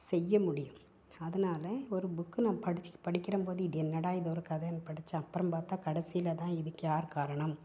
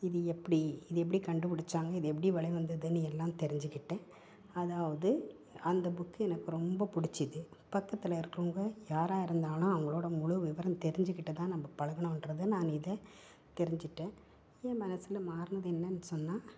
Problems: none marked